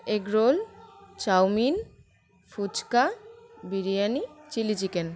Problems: background sounds at intervals